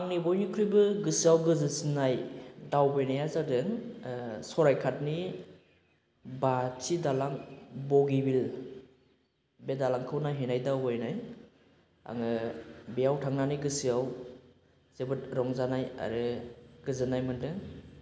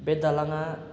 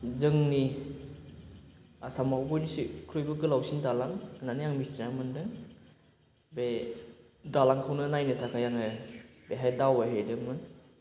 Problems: none marked